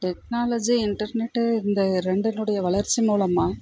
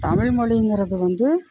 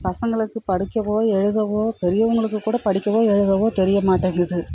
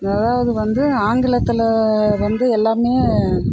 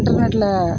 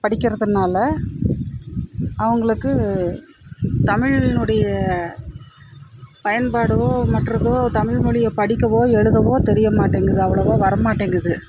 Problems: constant background noise